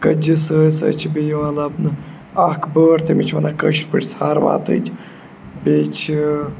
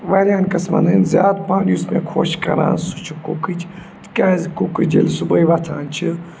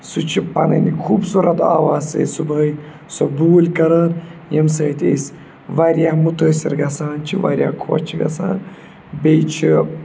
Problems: none marked